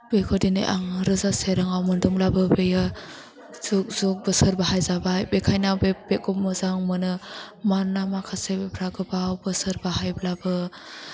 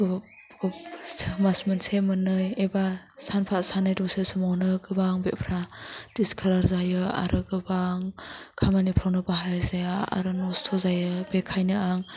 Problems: low volume